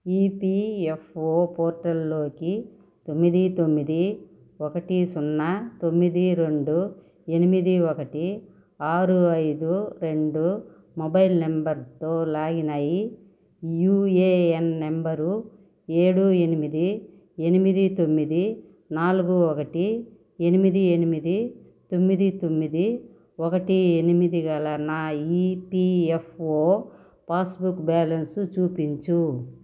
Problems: none marked